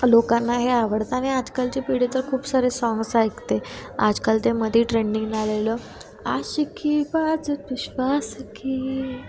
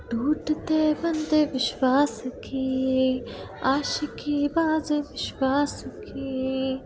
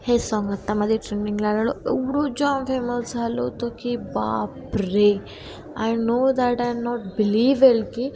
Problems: constant background noise, background conversations at intervals